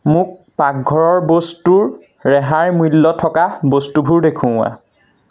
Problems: constant background noise